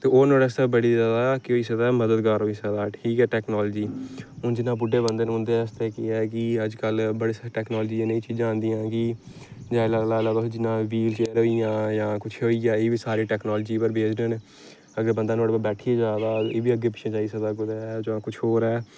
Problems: none marked